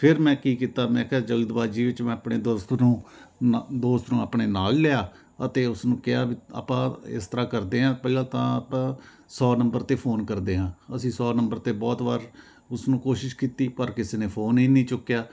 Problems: constant background noise